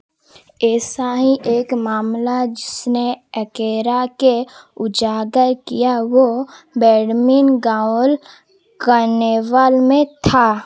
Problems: constant background noise